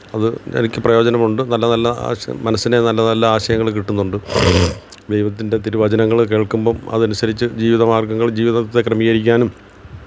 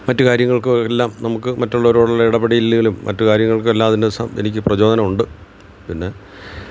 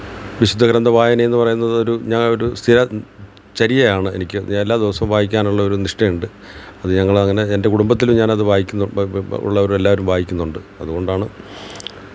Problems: background sounds at intervals